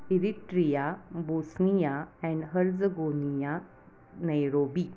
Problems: background sounds at intervals